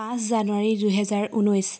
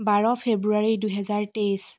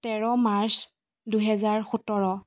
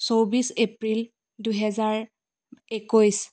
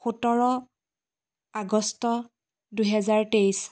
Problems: none marked